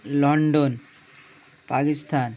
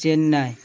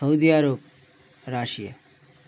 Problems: none marked